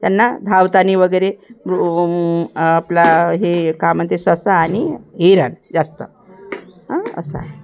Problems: none marked